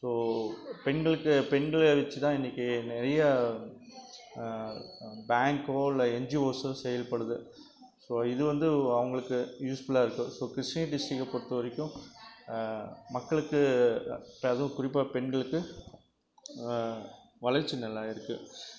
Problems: constant background noise, background conversations at intervals